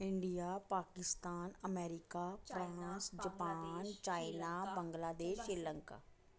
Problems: background sounds at intervals, echo